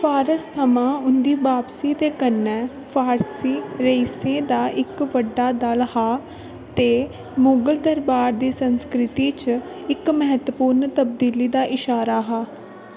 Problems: constant background noise